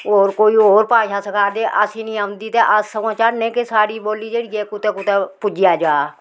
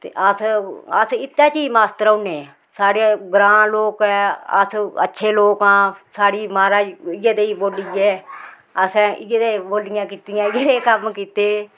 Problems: constant background noise, background conversations at intervals